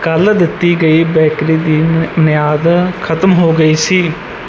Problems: none marked